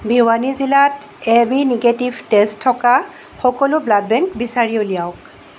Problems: constant background noise